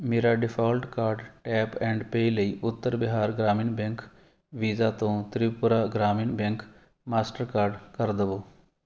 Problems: none marked